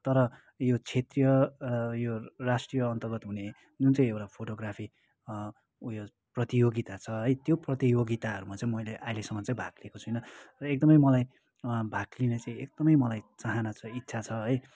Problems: continuous background conversations